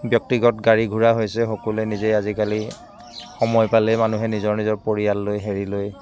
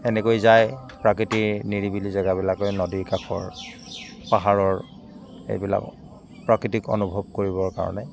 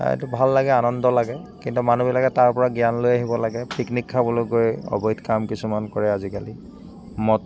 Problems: constant background noise